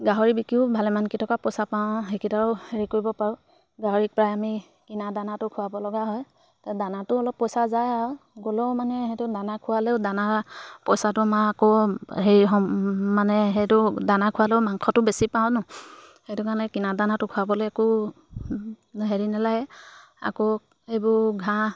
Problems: background sounds at intervals